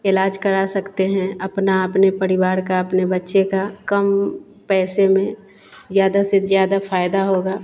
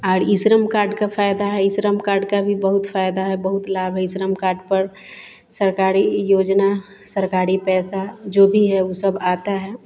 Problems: none marked